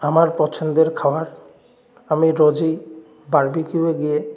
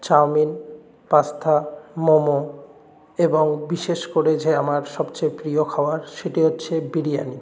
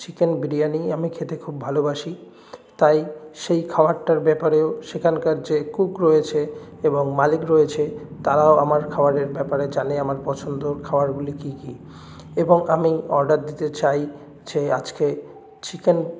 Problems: none marked